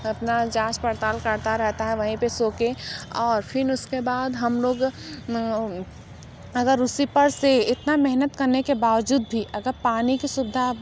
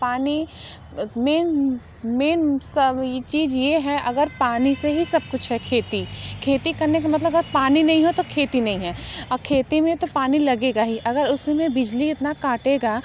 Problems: none marked